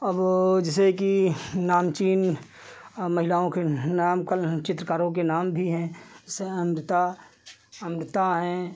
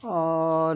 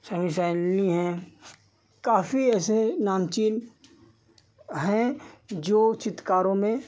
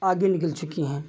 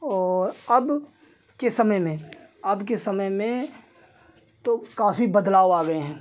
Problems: none marked